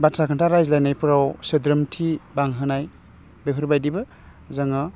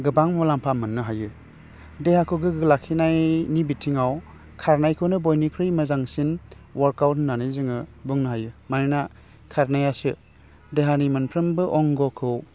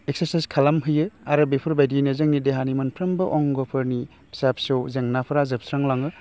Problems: low volume